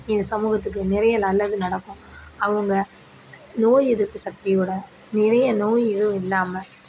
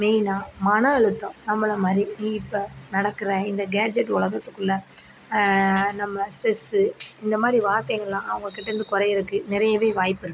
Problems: background sounds at intervals